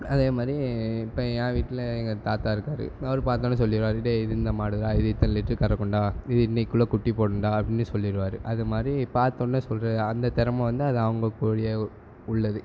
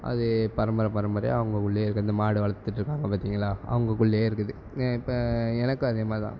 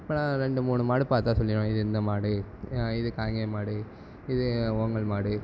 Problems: constant background noise